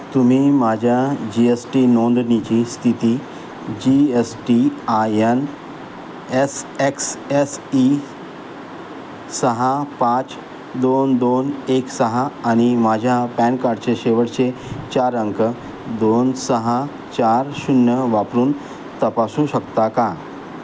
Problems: constant background noise